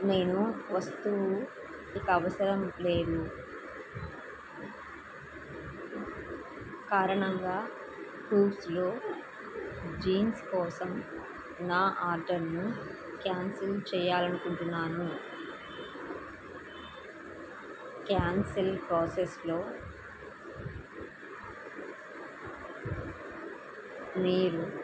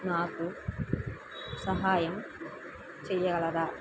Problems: constant background noise